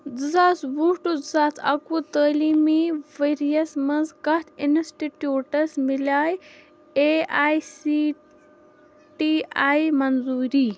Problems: background sounds at intervals